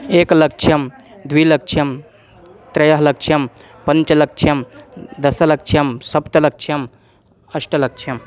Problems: none marked